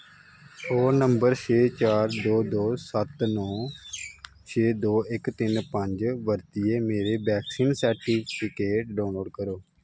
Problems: constant background noise